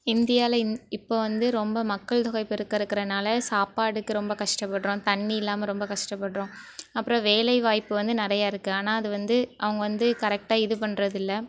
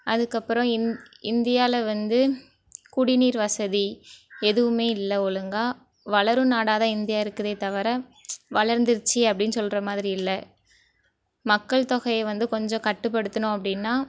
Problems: background conversations at intervals